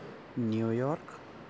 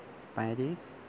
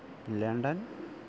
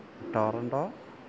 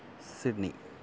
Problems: low volume